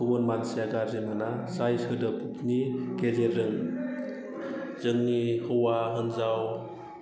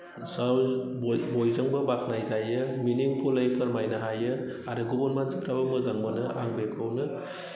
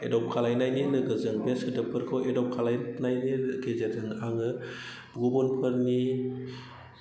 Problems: low volume